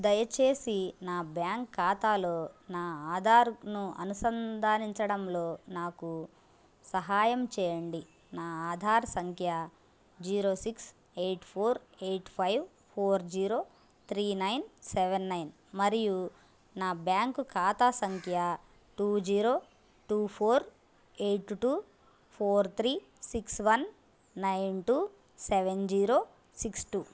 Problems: constant background noise